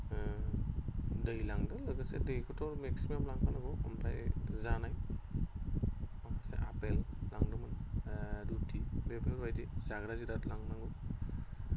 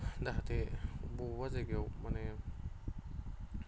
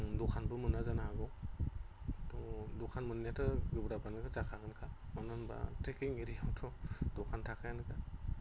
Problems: constant background noise